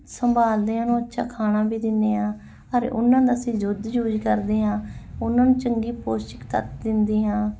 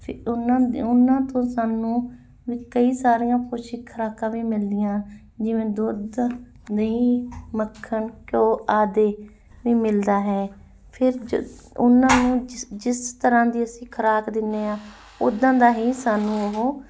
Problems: none marked